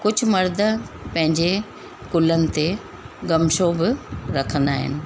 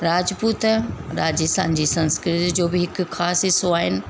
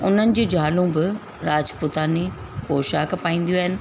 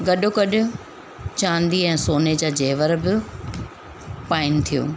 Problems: constant background noise